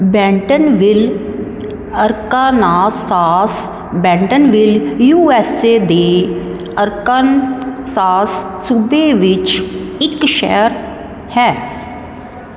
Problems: none marked